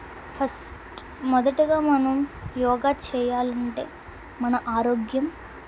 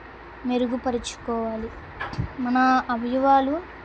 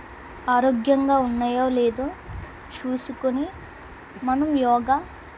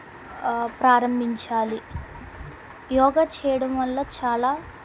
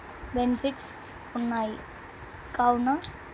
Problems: constant background noise